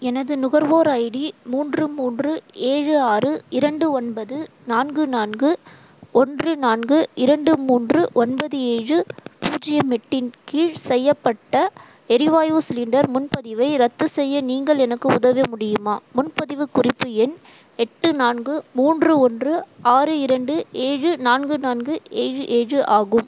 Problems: constant background noise